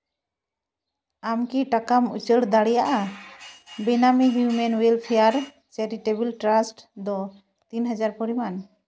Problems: none marked